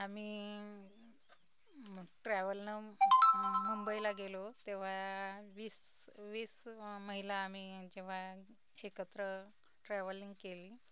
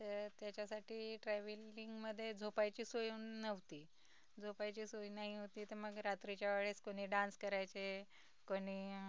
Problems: none marked